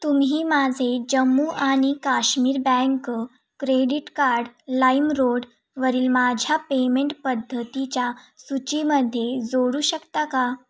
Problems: none marked